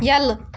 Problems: background sounds at intervals